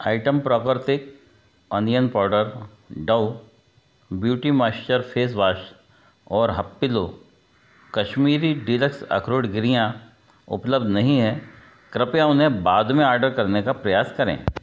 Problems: background sounds at intervals